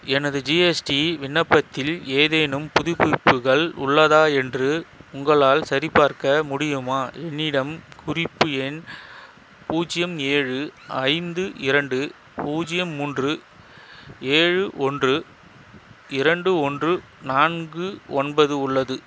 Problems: constant background noise